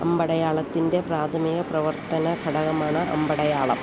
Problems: constant background noise